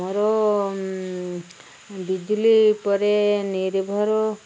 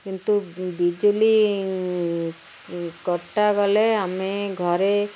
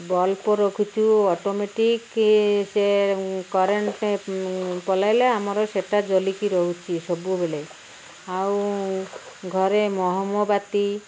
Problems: none marked